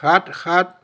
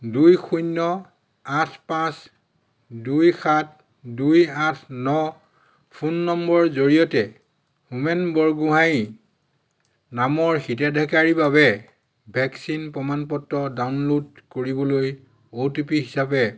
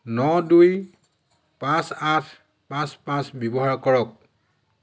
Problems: none marked